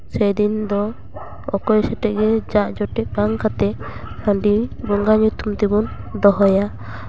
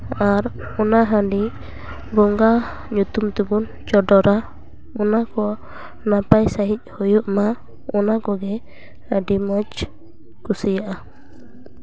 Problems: constant background noise